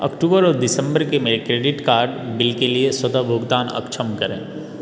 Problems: none marked